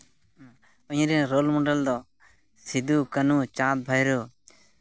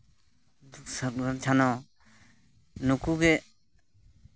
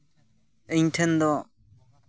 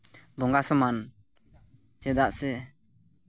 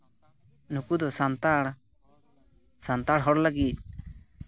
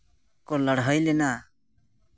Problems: constant background noise, background conversations at intervals